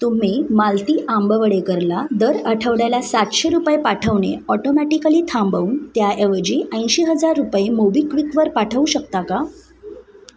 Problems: none marked